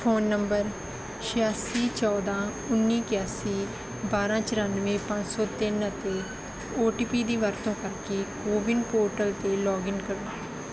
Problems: background sounds at intervals